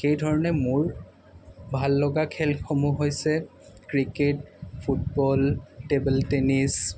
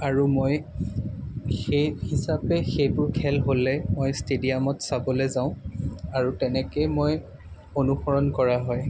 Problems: none marked